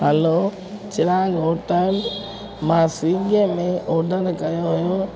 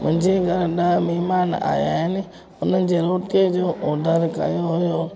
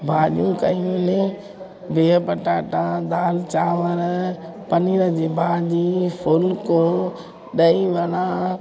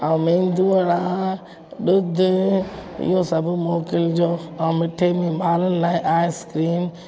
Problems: constant background noise